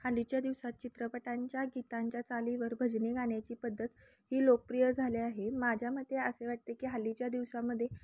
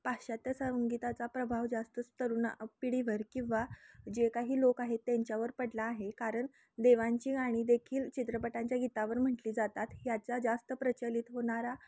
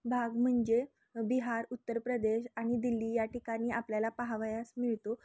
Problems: none marked